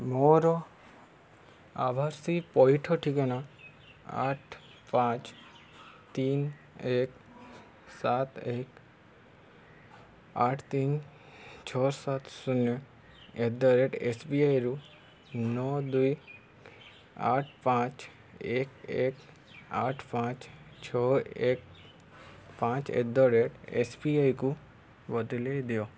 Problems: none marked